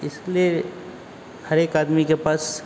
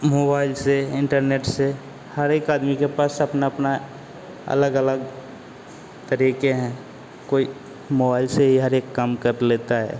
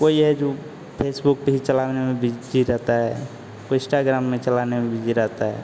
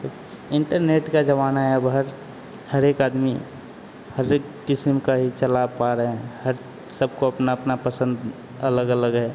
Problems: constant background noise